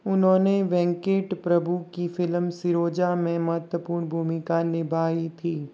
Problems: none marked